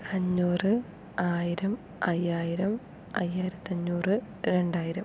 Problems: none marked